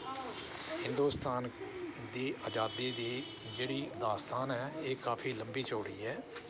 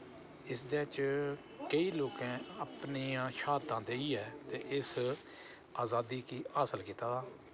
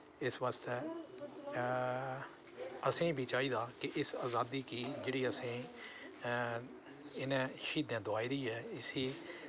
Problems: none marked